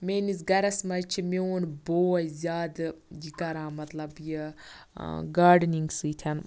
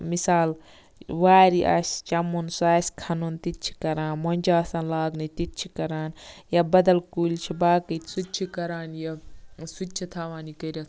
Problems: none marked